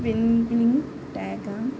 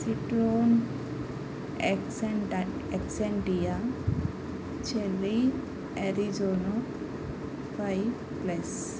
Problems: constant background noise